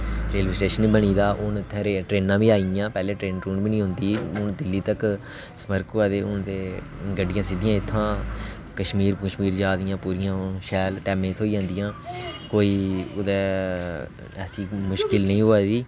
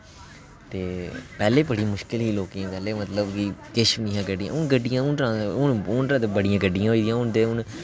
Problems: constant background noise